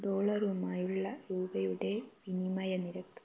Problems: low volume